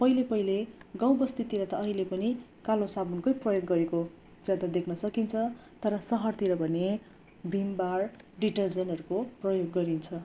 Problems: none marked